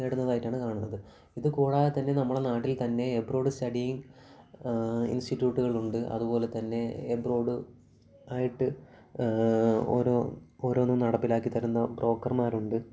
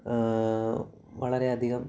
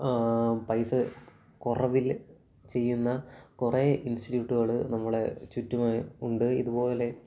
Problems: background sounds at intervals, low volume